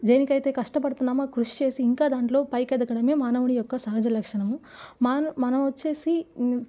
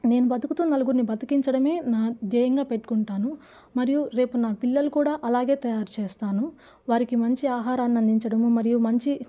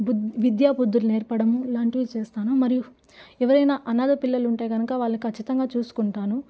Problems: none marked